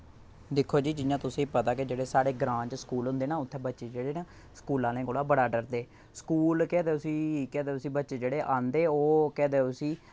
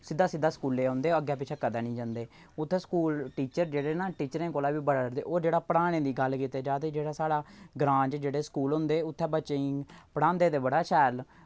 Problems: none marked